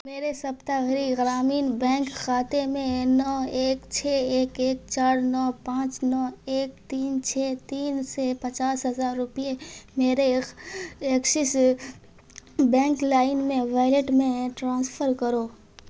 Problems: constant background noise